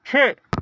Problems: none marked